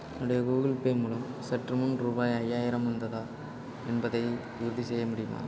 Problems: constant background noise